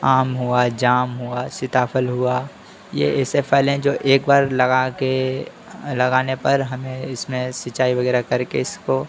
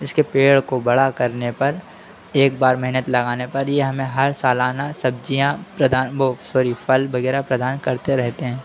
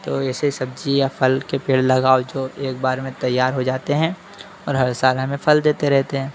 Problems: constant background noise